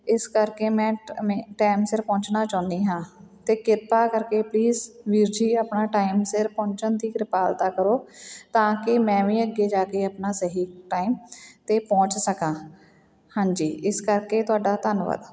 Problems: background sounds at intervals